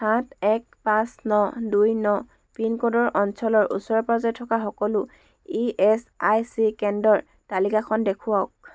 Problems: none marked